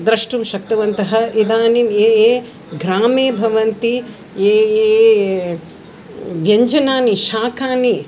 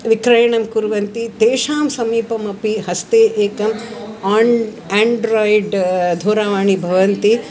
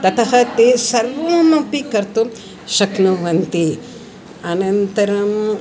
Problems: continuous background conversations